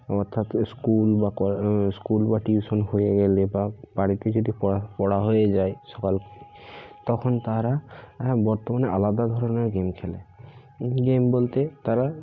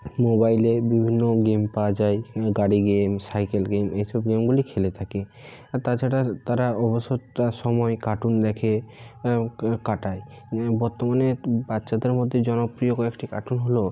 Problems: constant background noise